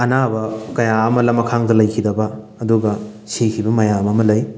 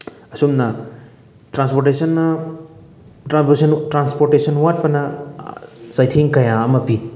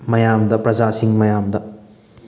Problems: background sounds at intervals, background conversations at intervals